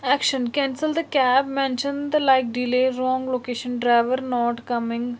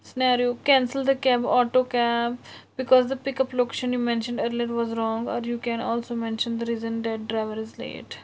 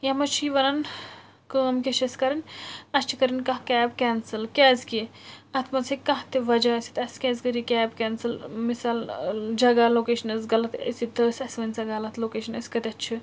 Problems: constant background noise